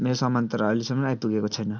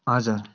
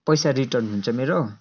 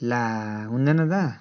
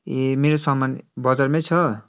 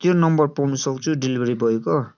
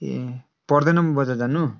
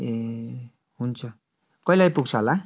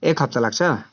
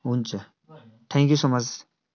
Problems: continuous background conversations